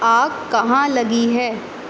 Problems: constant background noise, echo